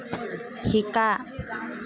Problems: background conversations at intervals